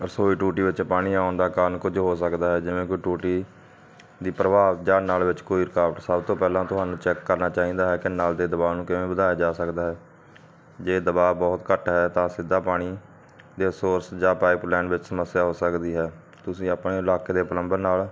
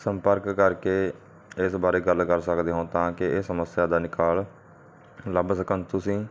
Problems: none marked